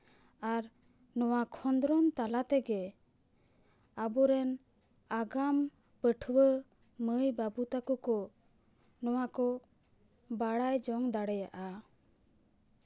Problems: none marked